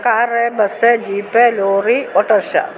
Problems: constant background noise